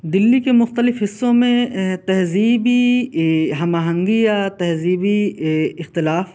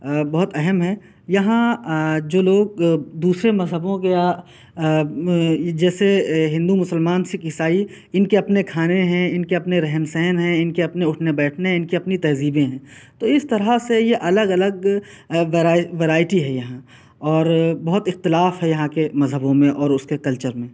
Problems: constant background noise